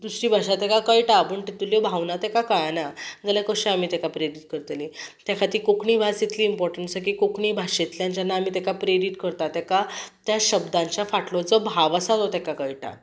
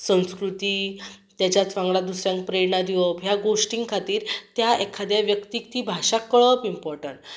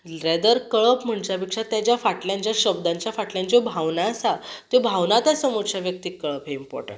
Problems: none marked